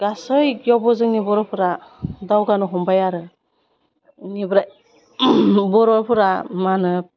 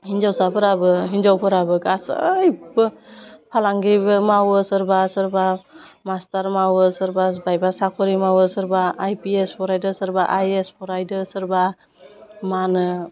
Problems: constant background noise